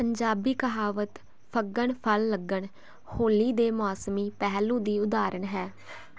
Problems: constant background noise